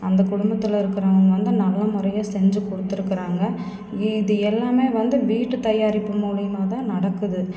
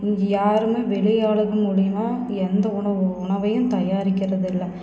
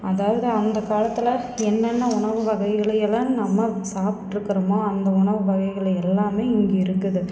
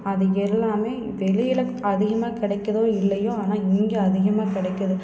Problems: constant background noise